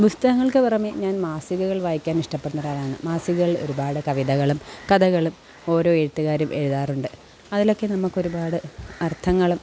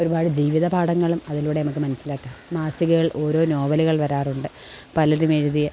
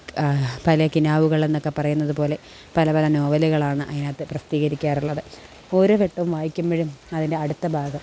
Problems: background sounds at intervals